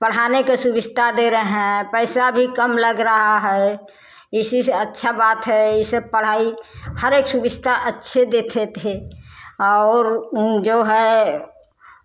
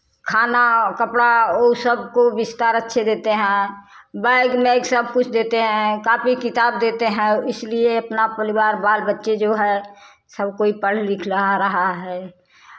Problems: constant background noise, background conversations at intervals